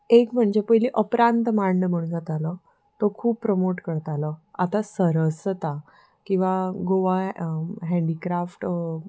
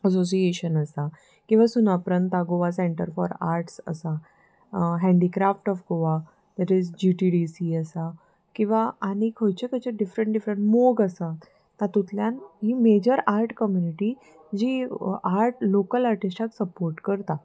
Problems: background sounds at intervals, background conversations at intervals